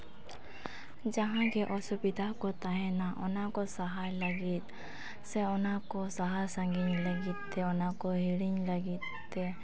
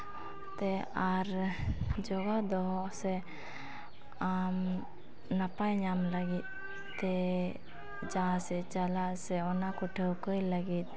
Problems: constant background noise, background conversations at intervals